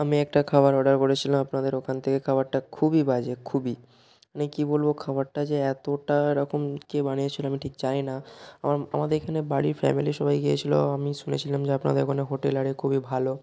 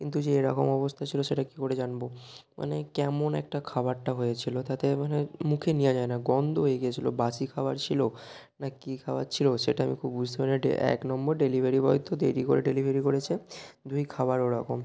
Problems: none marked